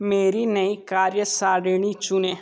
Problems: background sounds at intervals